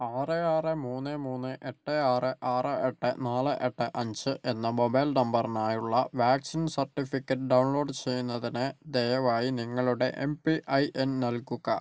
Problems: none marked